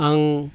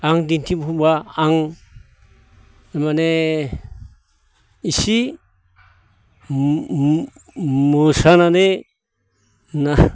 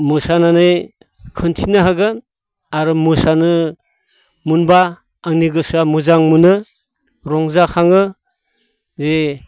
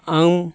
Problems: none marked